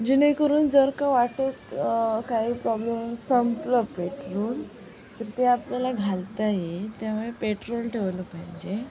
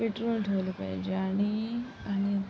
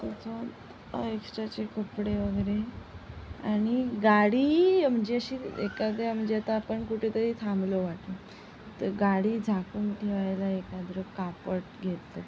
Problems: constant background noise, low volume